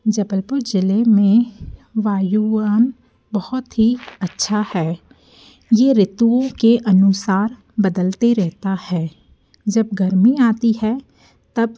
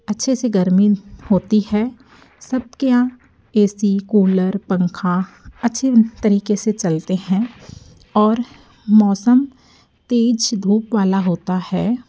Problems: none marked